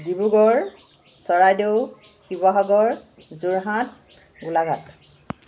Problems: constant background noise